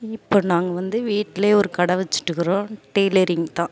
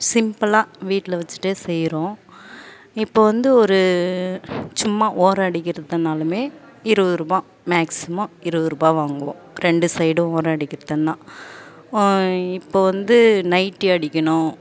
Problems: none marked